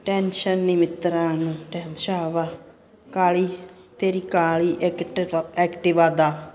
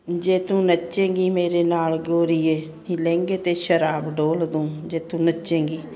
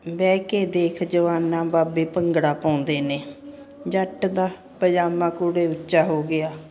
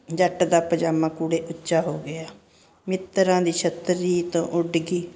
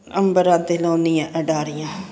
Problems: constant background noise